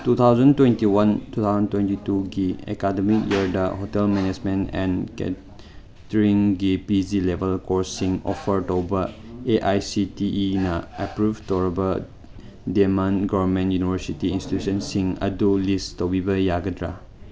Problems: none marked